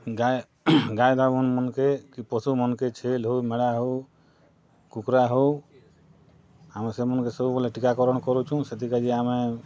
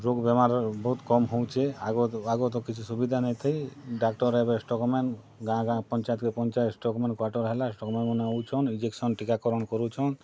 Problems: none marked